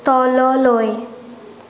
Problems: constant background noise